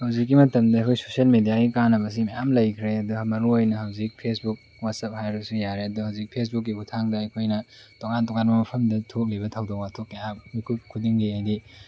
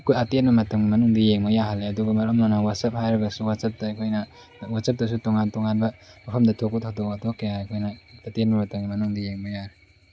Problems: constant background noise